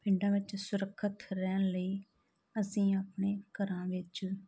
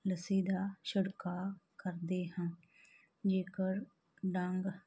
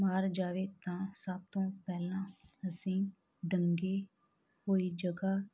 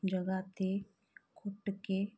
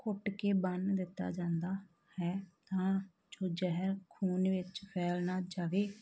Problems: background sounds at intervals